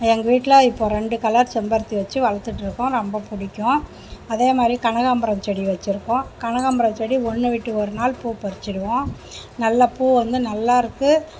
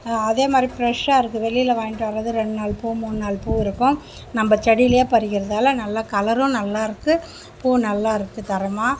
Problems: none marked